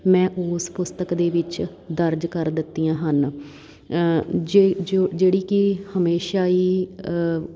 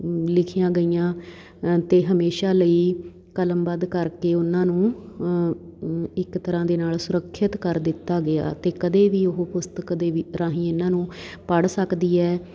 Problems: background sounds at intervals